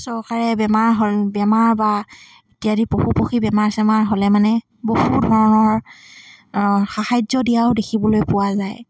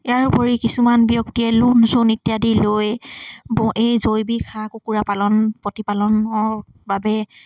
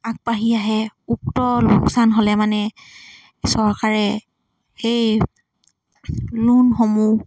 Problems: constant background noise